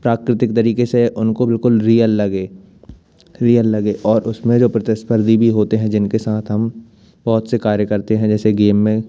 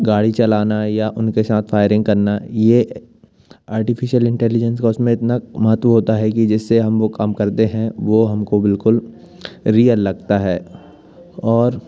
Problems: none marked